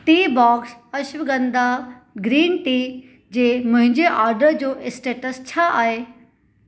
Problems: none marked